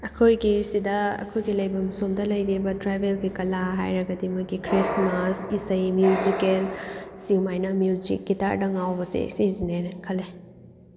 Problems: background sounds at intervals